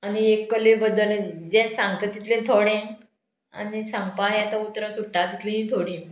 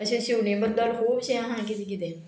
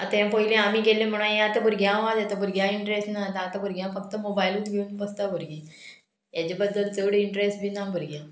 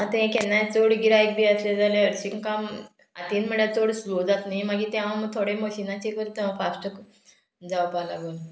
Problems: none marked